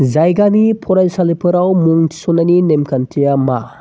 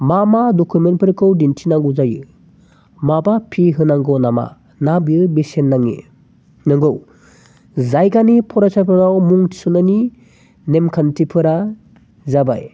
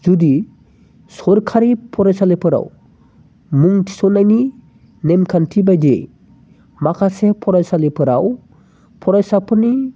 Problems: constant background noise